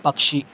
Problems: constant background noise